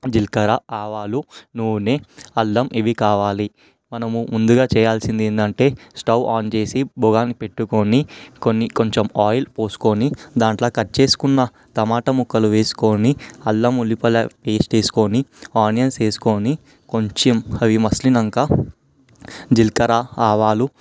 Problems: background sounds at intervals